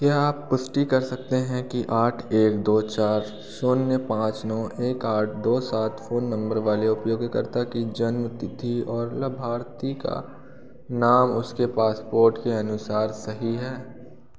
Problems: constant background noise